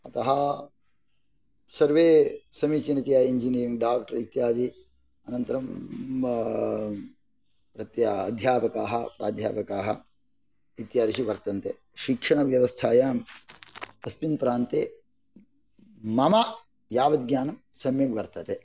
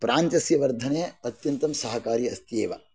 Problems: none marked